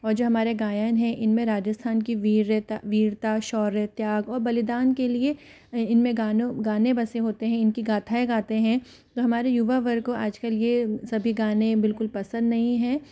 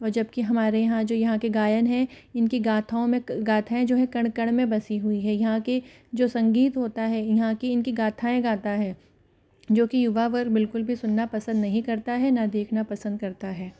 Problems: background sounds at intervals